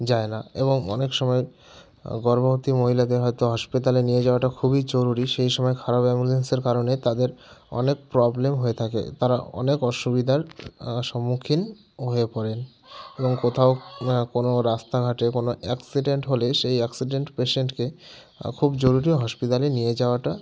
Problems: none marked